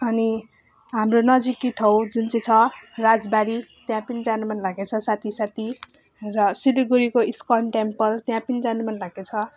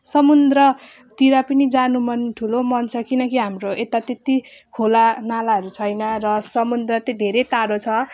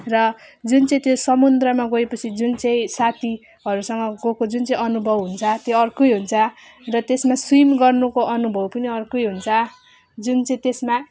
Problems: none marked